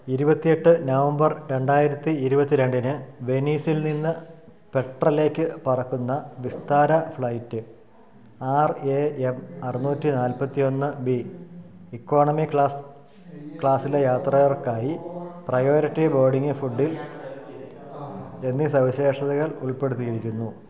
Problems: low volume